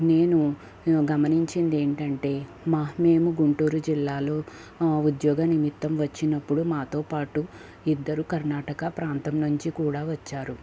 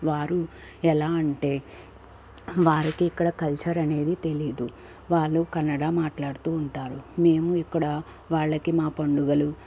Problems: constant background noise